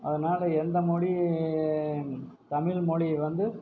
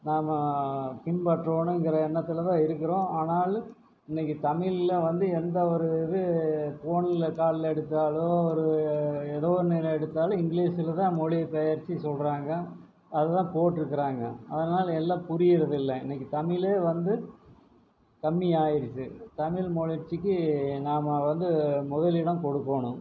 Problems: low volume